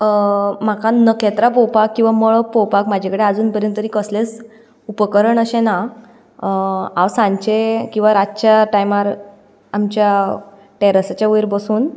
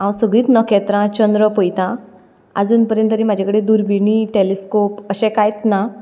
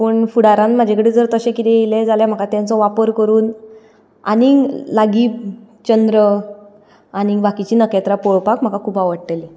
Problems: none marked